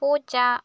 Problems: none marked